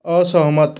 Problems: none marked